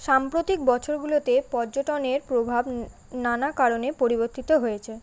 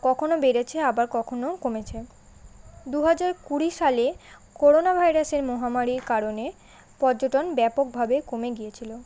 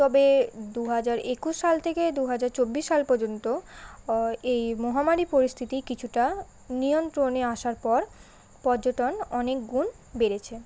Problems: constant background noise